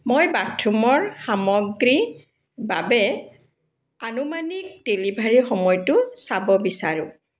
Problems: none marked